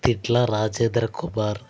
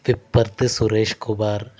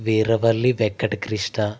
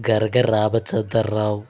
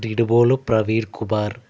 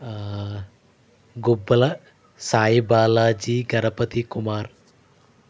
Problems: constant background noise